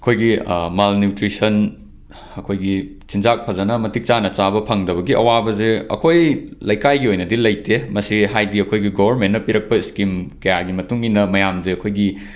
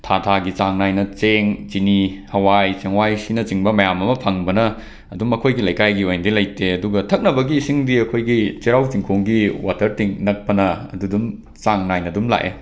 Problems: none marked